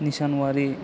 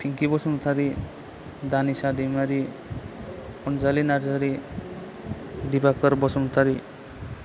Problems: none marked